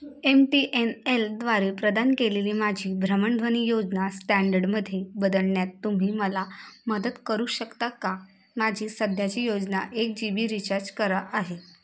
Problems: constant background noise